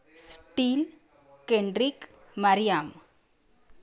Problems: constant background noise, background conversations at intervals